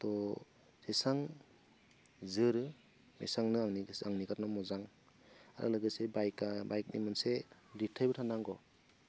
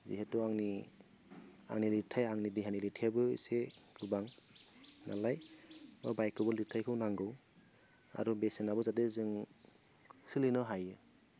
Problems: none marked